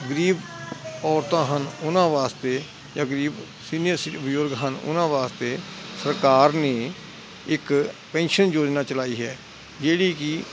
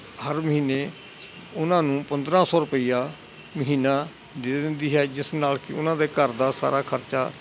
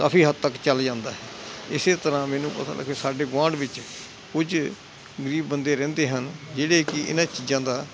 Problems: none marked